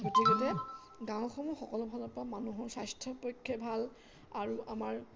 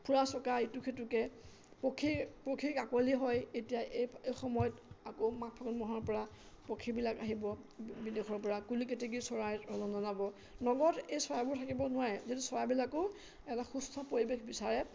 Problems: constant background noise, background conversations at intervals